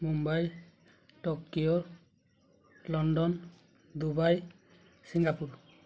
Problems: low volume